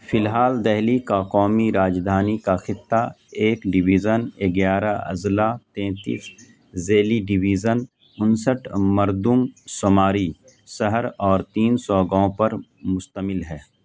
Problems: constant background noise